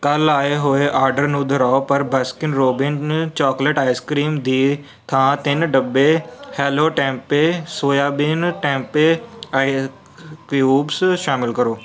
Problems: none marked